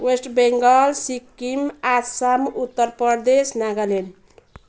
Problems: background sounds at intervals